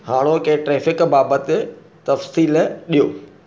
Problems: none marked